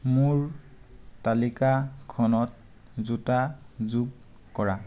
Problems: none marked